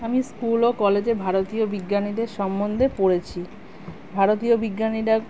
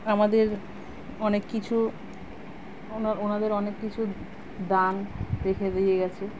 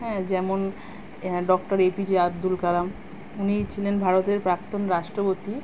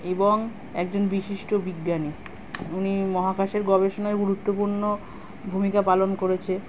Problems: constant background noise